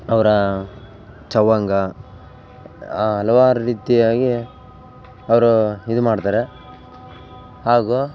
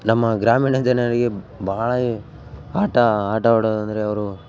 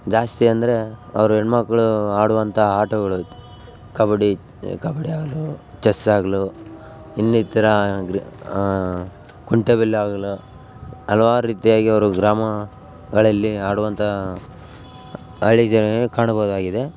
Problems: background sounds at intervals